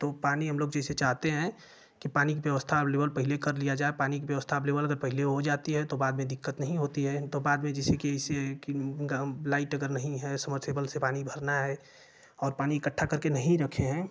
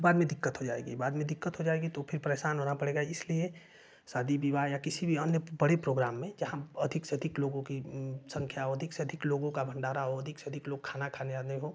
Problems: constant background noise